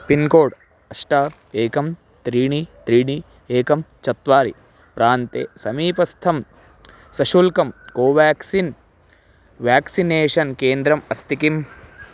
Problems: none marked